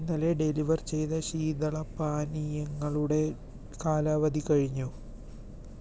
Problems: none marked